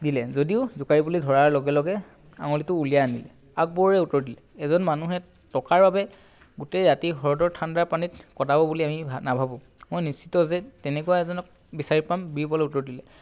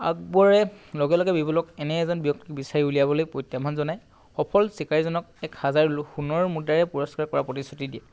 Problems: background sounds at intervals